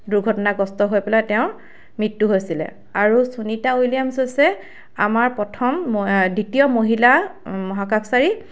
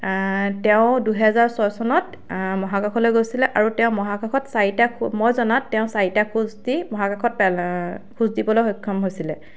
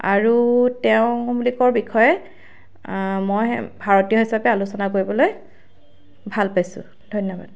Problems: constant background noise